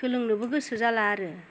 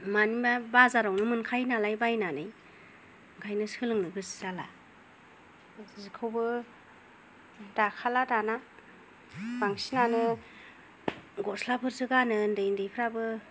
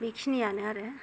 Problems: low volume